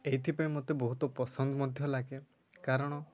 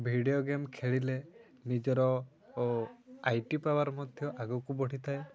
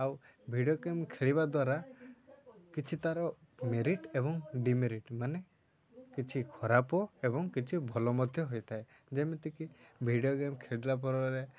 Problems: none marked